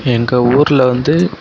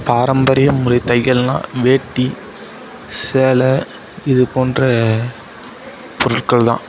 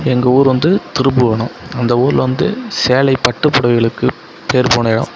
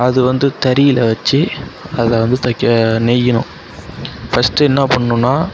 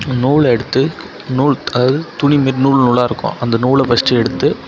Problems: background sounds at intervals, background conversations at intervals